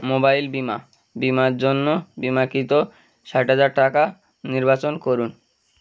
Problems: background sounds at intervals